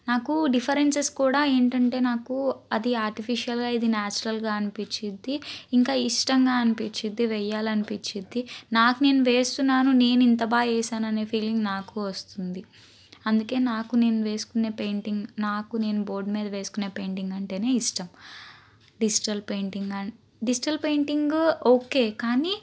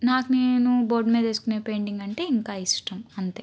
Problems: none marked